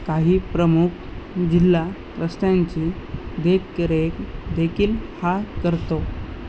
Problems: none marked